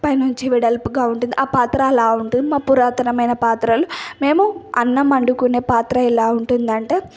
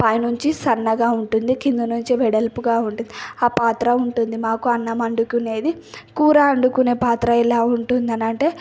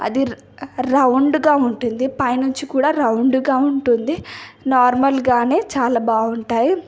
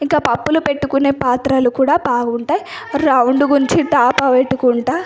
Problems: none marked